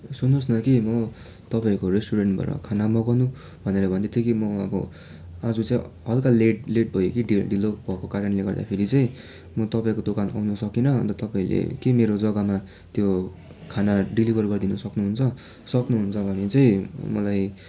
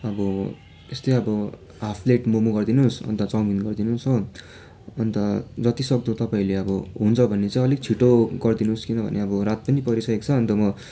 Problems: none marked